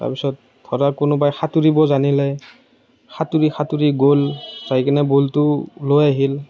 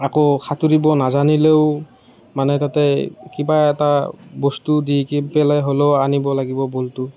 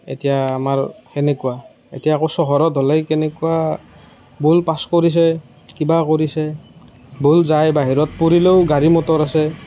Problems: none marked